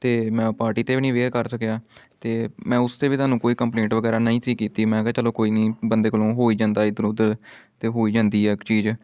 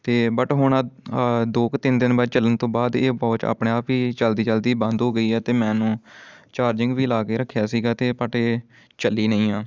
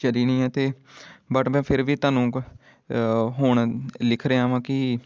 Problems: constant background noise